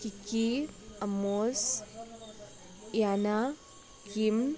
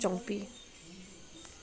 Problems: background sounds at intervals